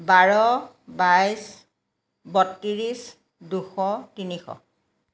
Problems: none marked